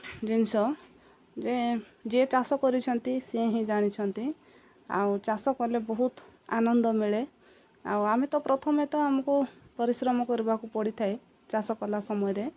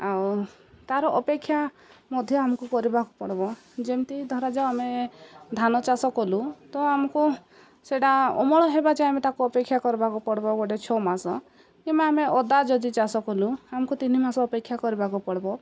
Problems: none marked